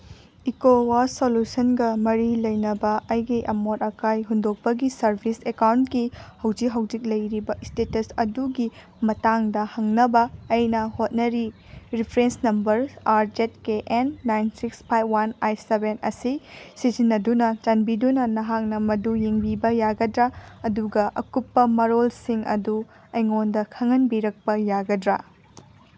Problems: background sounds at intervals